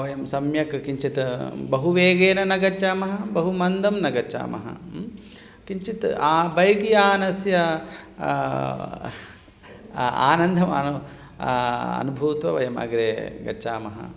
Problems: none marked